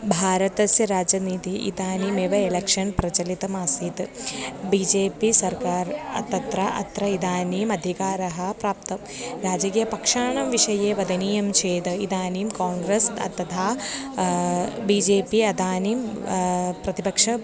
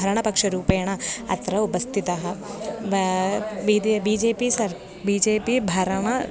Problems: background sounds at intervals